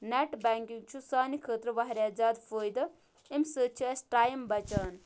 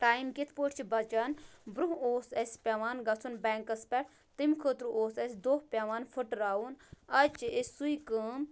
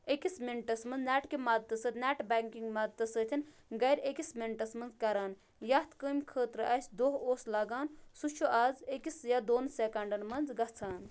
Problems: none marked